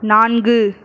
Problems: none marked